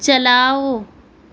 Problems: constant background noise